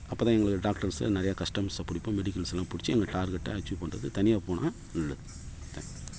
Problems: background sounds at intervals